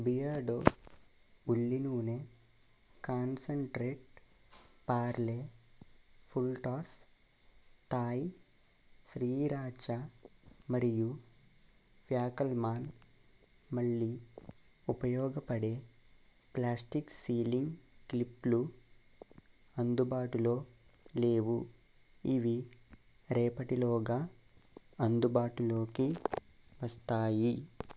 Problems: constant background noise